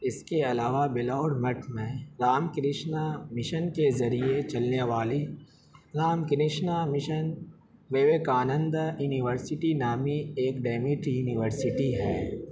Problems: constant background noise